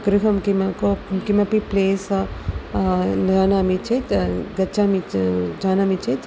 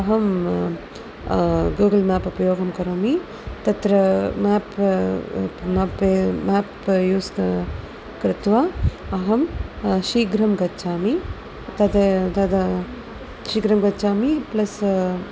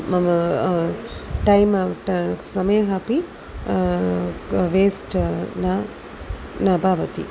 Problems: constant background noise